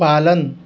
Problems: none marked